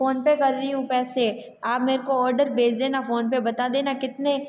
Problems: background sounds at intervals, background conversations at intervals